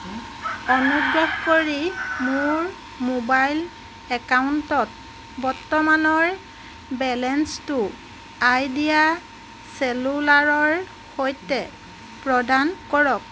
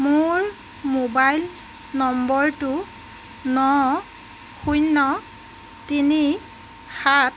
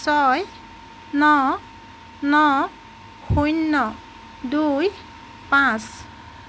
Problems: constant background noise